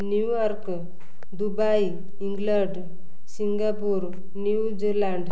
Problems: none marked